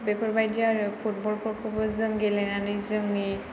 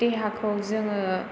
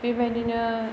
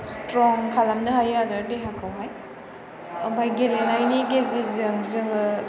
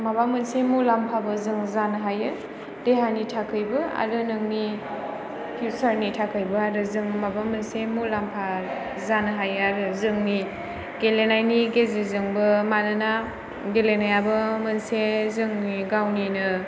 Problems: background sounds at intervals